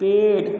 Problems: none marked